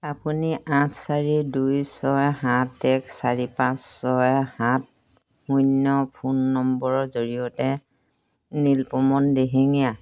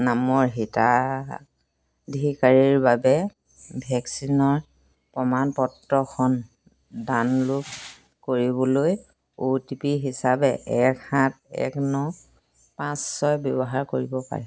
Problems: constant background noise